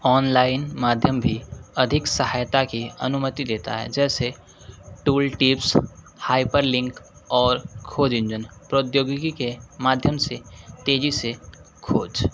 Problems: constant background noise